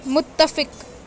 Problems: constant background noise